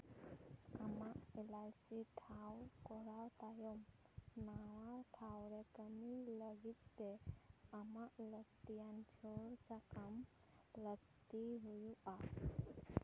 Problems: background sounds at intervals